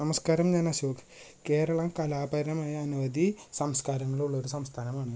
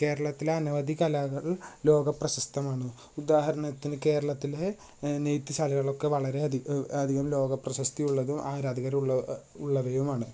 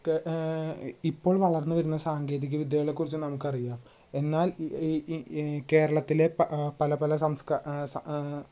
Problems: low volume